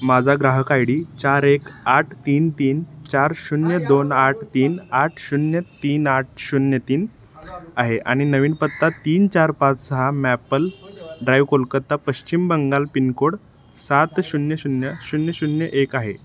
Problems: constant background noise, background conversations at intervals